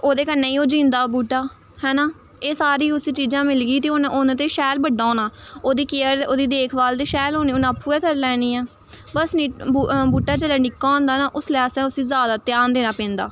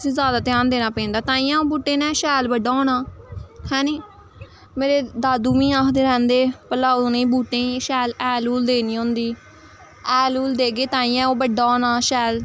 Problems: constant background noise